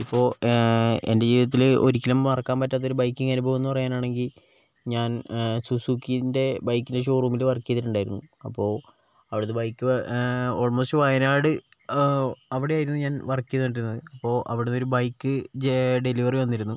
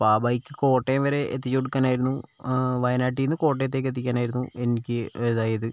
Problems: none marked